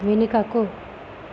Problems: constant background noise